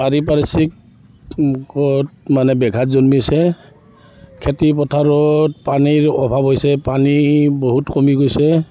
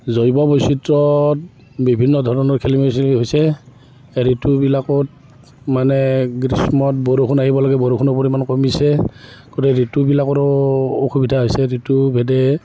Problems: background sounds at intervals, continuous background conversations